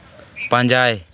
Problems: background sounds at intervals